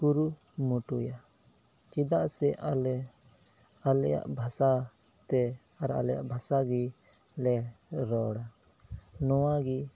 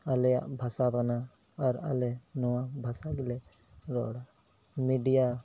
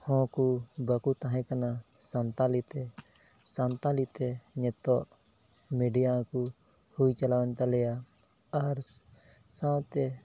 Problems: background sounds at intervals, low volume